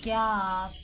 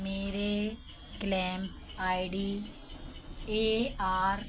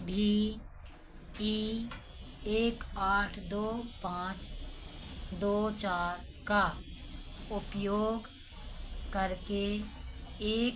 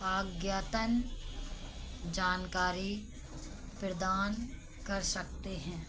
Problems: none marked